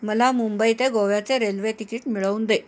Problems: background sounds at intervals